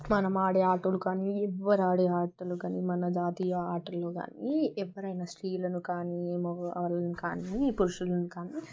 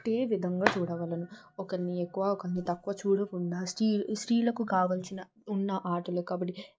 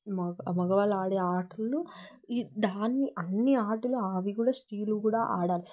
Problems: background sounds at intervals